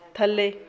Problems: background conversations at intervals